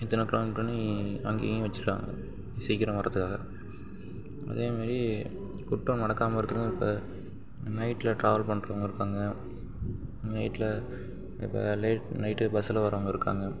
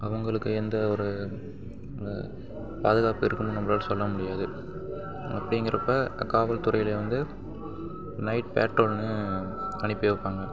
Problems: background sounds at intervals, low volume